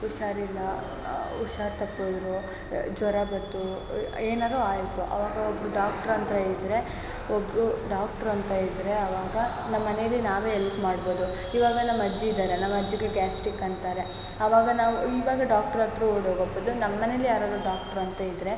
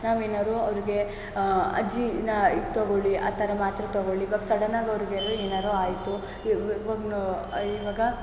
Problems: background sounds at intervals